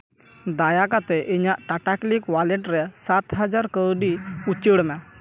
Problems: background sounds at intervals, background conversations at intervals